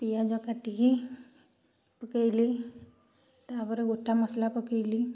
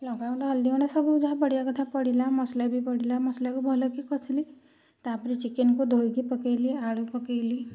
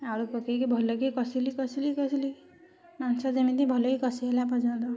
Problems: none marked